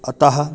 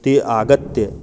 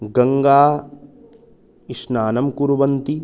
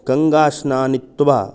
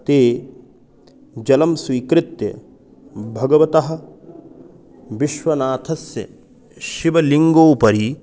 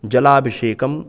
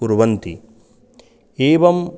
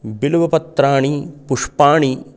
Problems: constant background noise